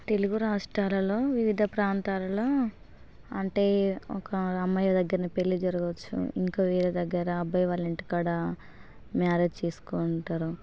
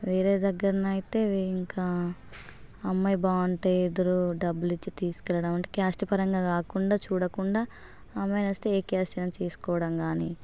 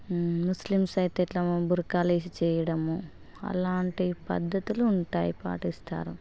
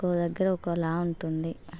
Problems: constant background noise